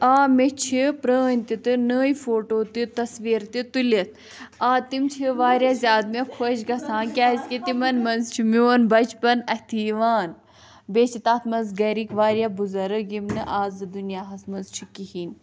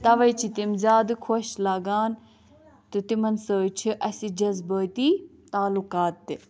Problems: background sounds at intervals, background conversations at intervals